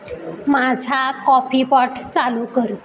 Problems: constant background noise, background conversations at intervals